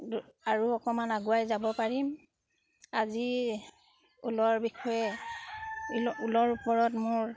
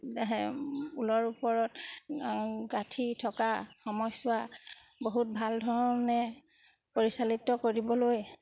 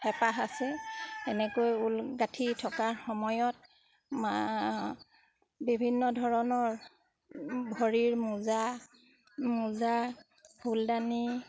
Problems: background sounds at intervals